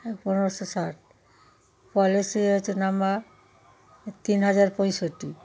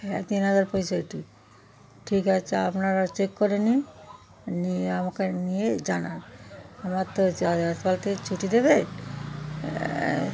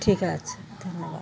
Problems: constant background noise, background conversations at intervals